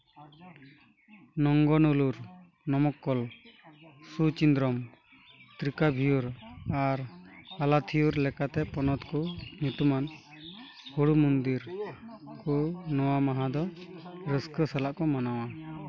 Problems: background sounds at intervals, continuous background conversations